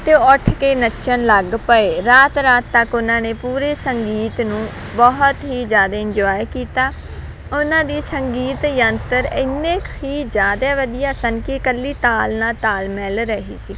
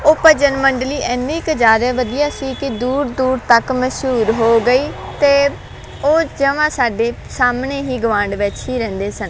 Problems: none marked